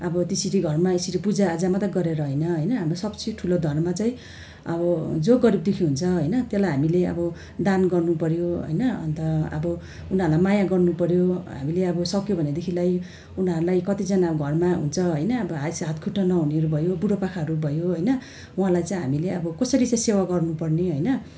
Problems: none marked